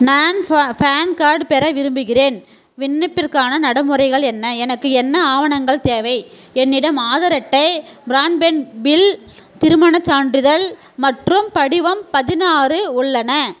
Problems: constant background noise, background conversations at intervals